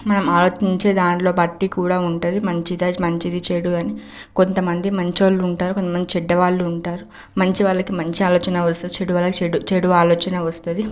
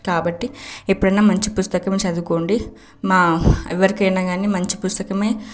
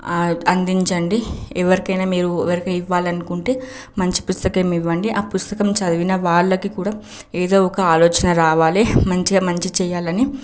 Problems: background sounds at intervals